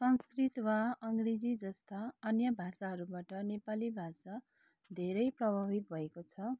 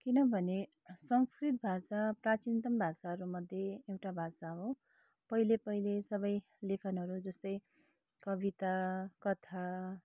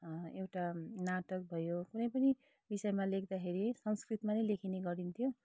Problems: low volume